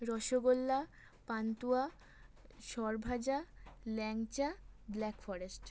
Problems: constant background noise